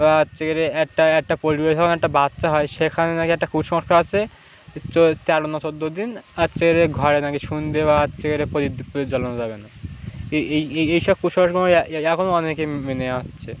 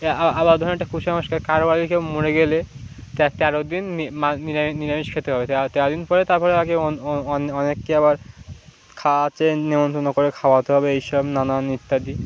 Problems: none marked